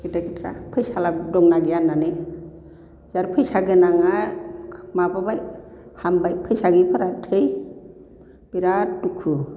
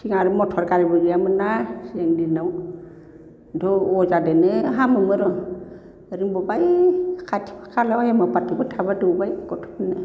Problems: none marked